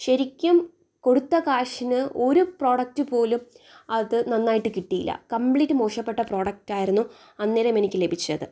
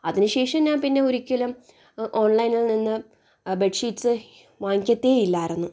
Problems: none marked